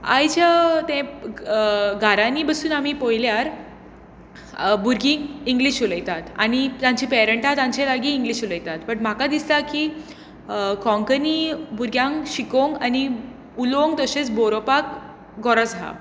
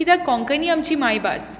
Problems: constant background noise